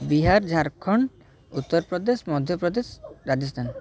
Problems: background conversations at intervals